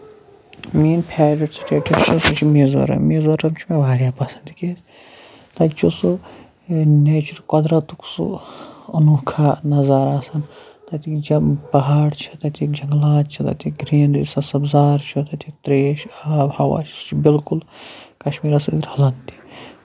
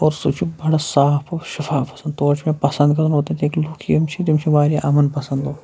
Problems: constant background noise